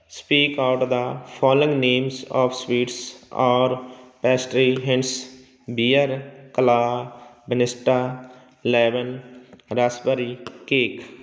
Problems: none marked